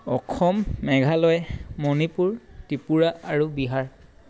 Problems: none marked